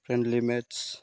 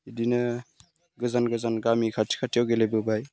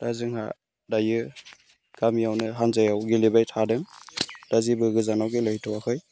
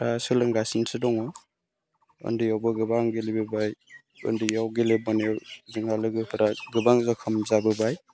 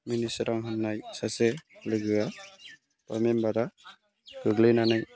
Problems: low volume